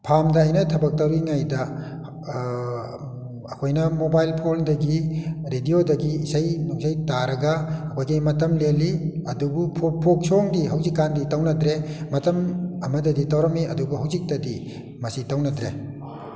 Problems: none marked